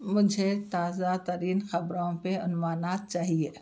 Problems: background sounds at intervals